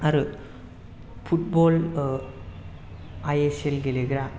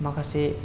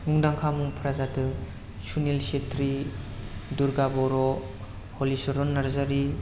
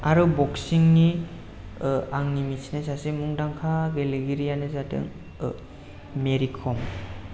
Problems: low volume